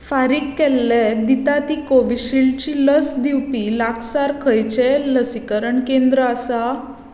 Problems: constant background noise, echo